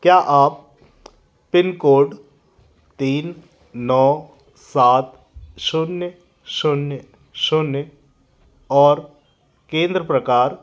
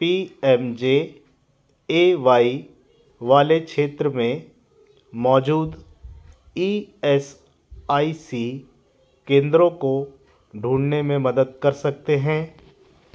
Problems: constant background noise, continuous background conversations